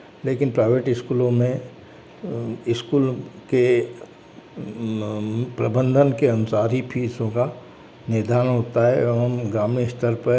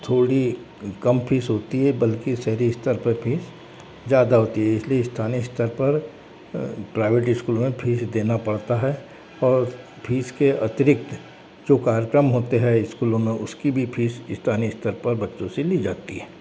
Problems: constant background noise